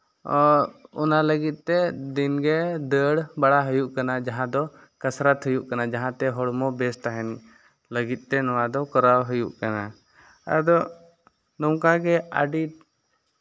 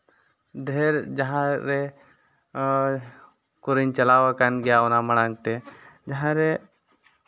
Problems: none marked